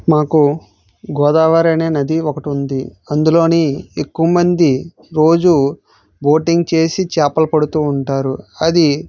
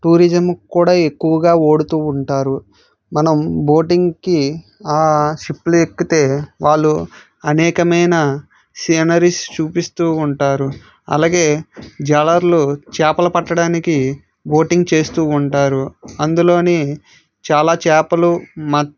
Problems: none marked